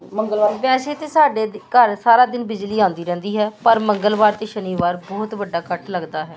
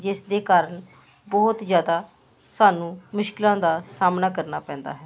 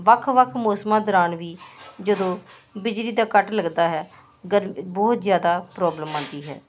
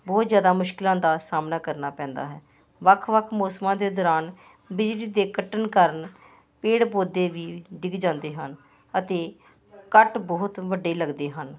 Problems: constant background noise